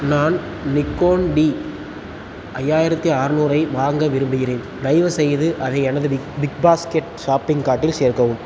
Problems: constant background noise